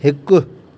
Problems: constant background noise, echo